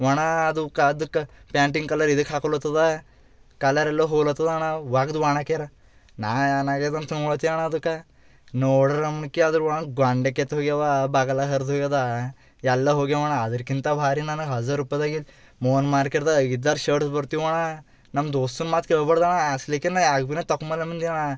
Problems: none marked